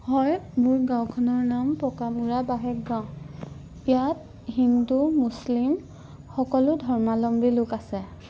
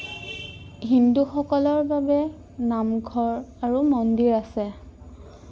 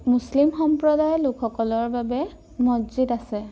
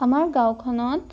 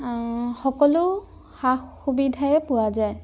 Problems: background sounds at intervals